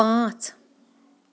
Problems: none marked